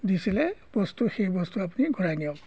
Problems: background sounds at intervals